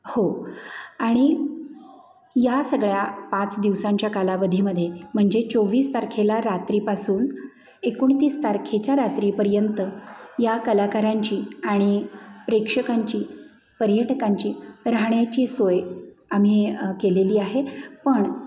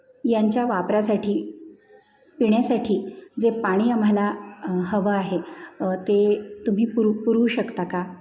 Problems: constant background noise